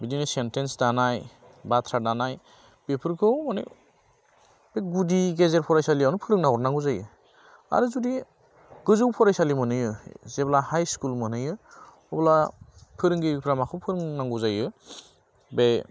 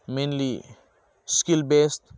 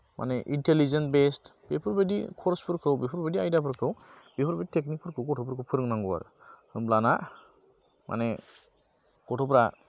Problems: none marked